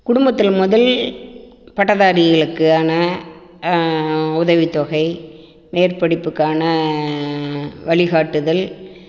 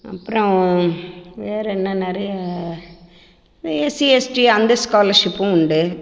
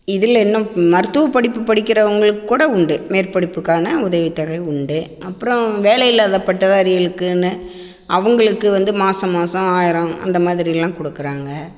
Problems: constant background noise, echo